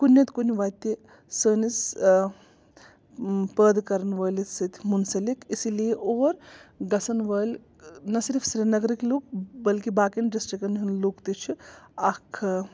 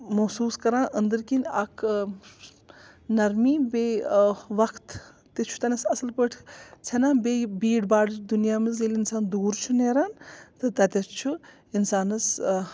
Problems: background sounds at intervals